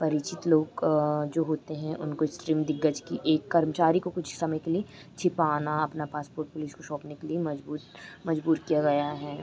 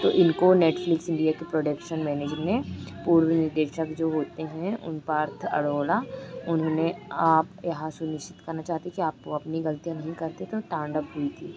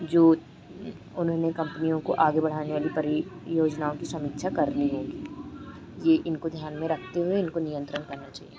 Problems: constant background noise